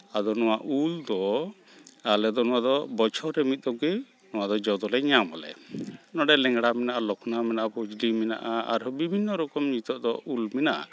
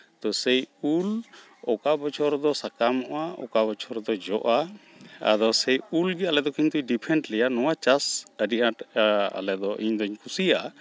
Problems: none marked